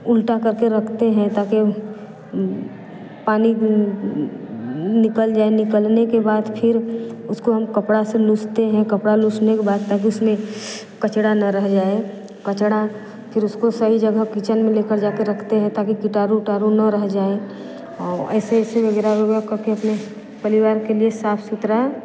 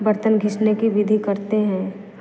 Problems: none marked